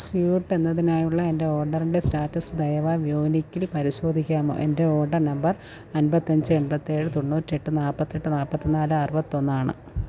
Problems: background sounds at intervals, low volume